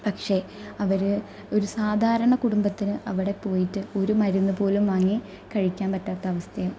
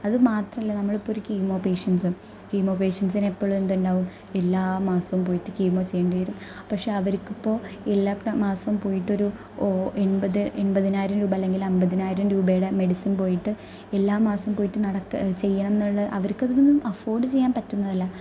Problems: none marked